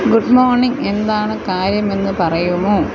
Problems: constant background noise